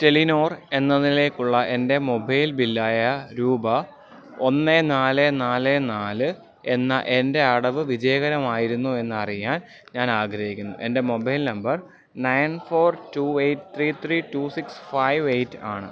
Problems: background sounds at intervals